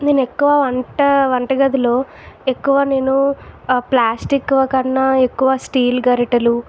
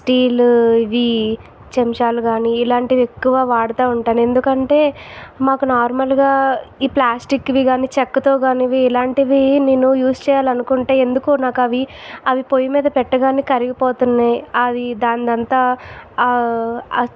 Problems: constant background noise